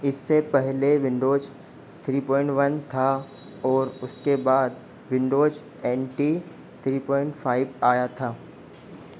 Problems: constant background noise